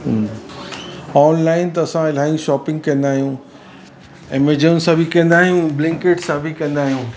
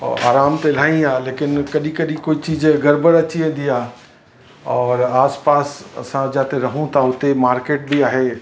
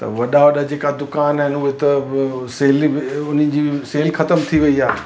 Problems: constant background noise